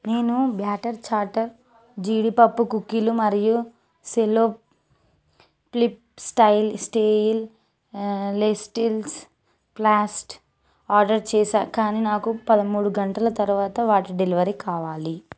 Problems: background sounds at intervals